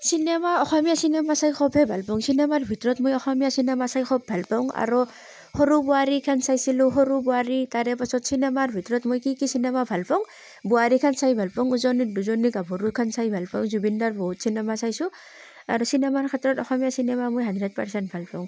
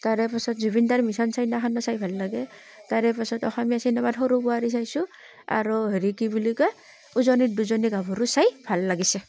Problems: constant background noise